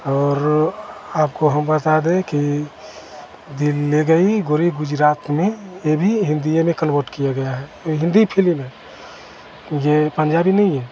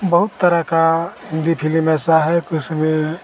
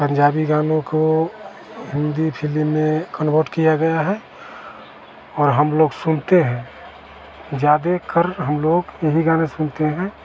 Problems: none marked